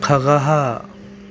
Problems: none marked